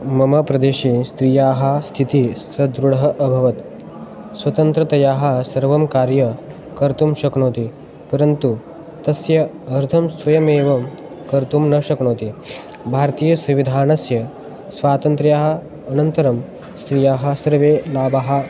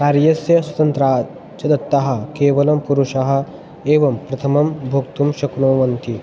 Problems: background sounds at intervals